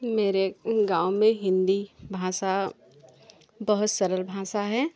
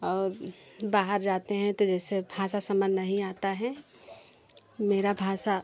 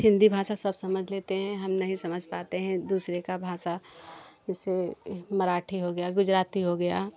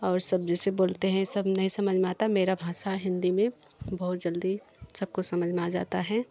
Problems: continuous background conversations